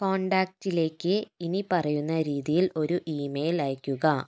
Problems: none marked